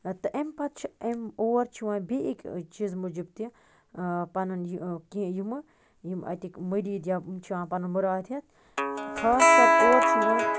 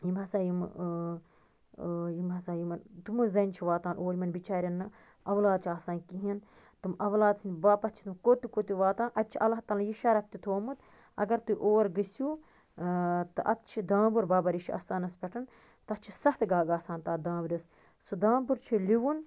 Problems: constant background noise